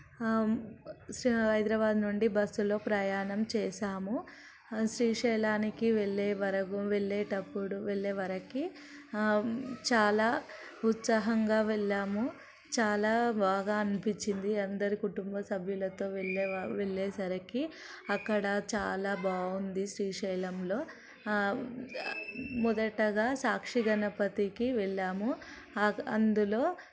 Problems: none marked